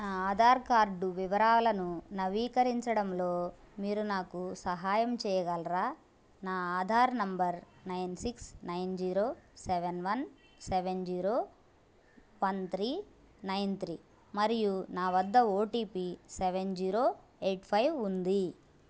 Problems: background conversations at intervals